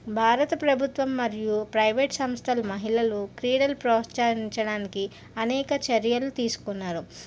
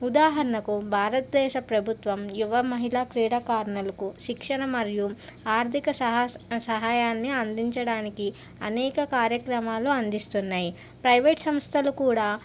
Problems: none marked